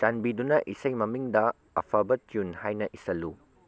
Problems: low volume